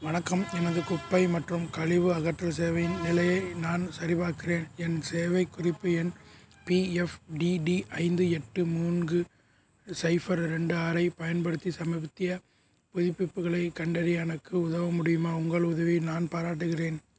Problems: background sounds at intervals